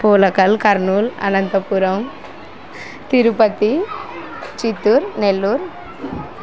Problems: constant background noise